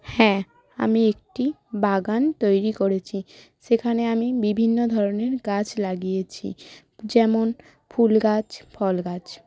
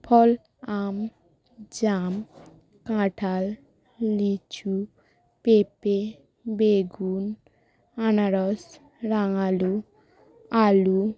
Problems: constant background noise